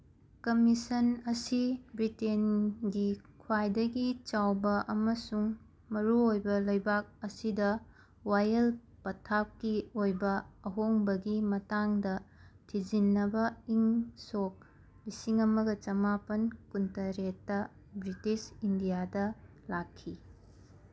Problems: none marked